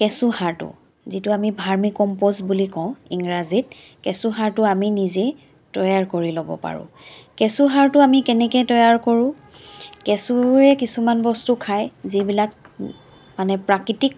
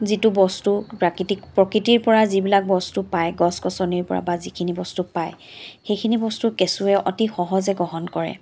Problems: none marked